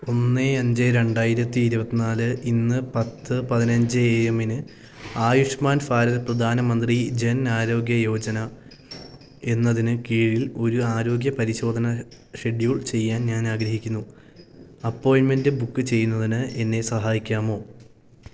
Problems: none marked